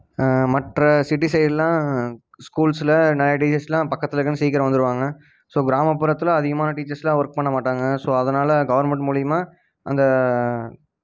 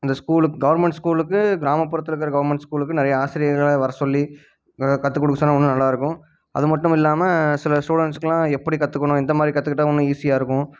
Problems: none marked